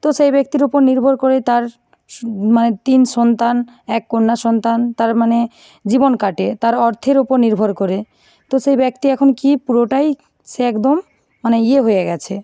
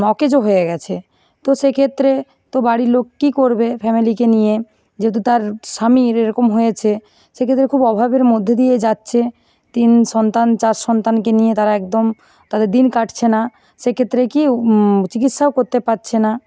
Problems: background sounds at intervals, continuous background conversations